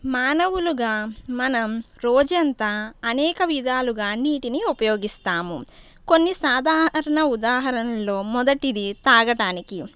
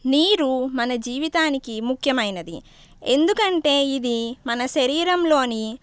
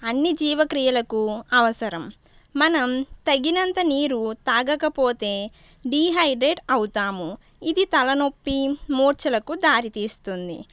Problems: none marked